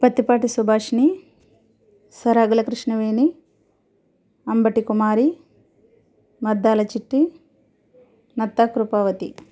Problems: none marked